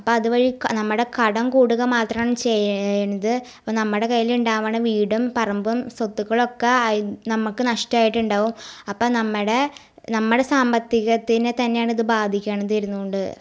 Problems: none marked